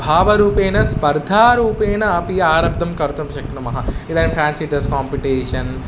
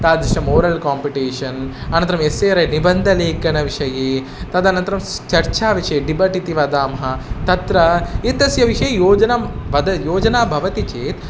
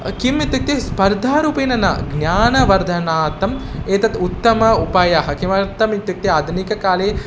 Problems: constant background noise